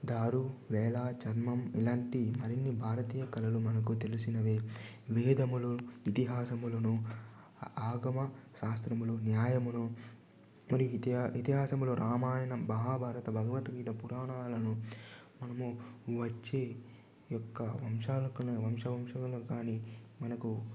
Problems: low volume